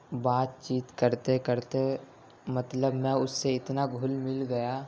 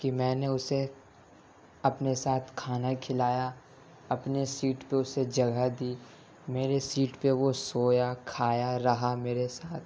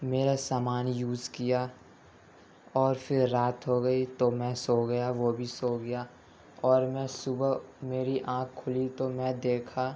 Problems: constant background noise, background conversations at intervals